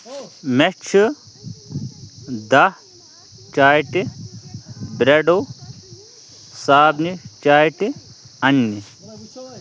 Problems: constant background noise, continuous background conversations